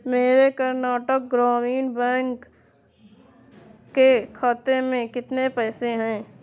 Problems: constant background noise